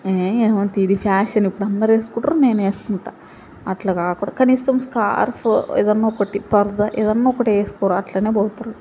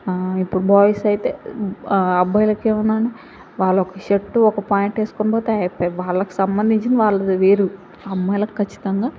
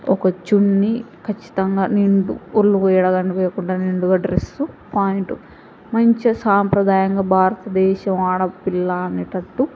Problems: background sounds at intervals, background conversations at intervals